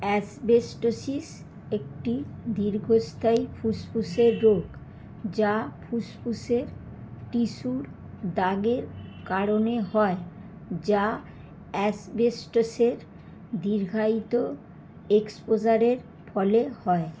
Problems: constant background noise